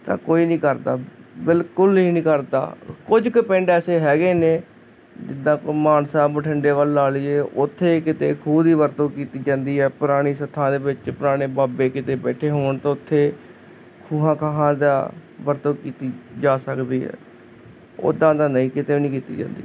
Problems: constant background noise